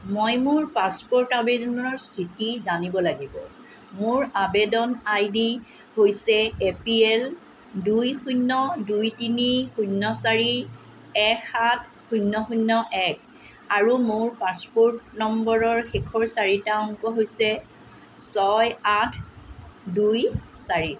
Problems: constant background noise